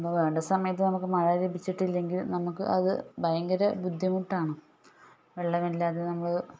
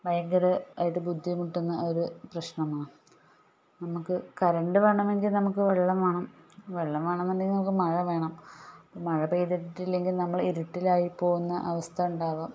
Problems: low volume